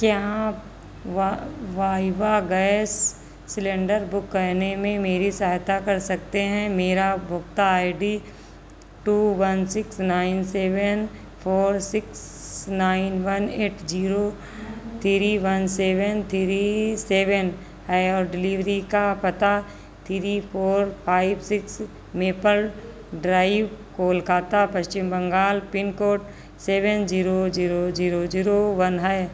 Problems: none marked